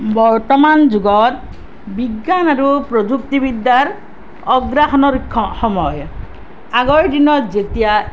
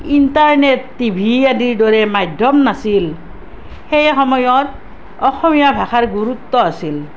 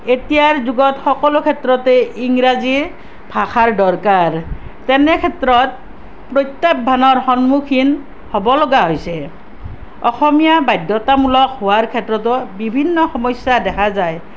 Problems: none marked